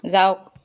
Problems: none marked